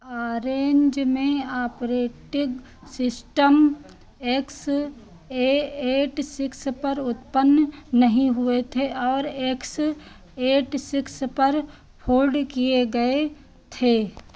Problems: constant background noise